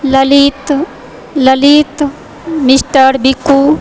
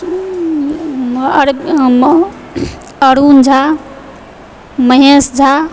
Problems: background sounds at intervals